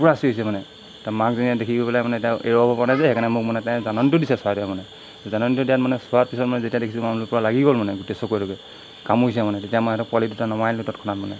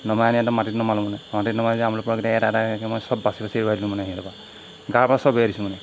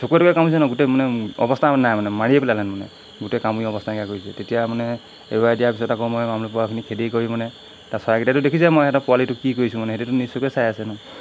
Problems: constant background noise